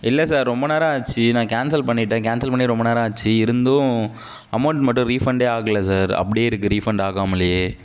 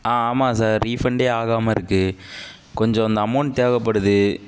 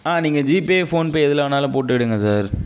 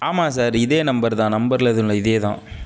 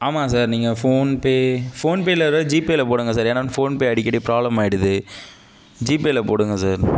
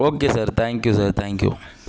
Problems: none marked